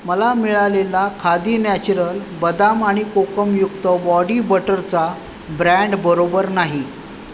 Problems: constant background noise